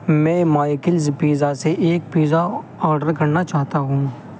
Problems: constant background noise